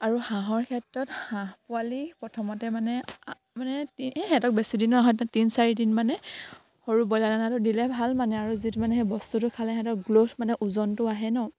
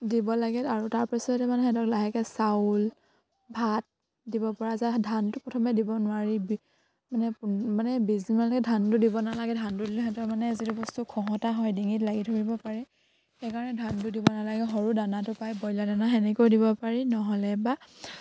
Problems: constant background noise